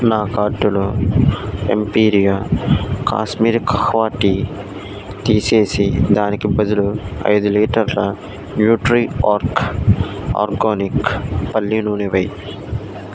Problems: constant background noise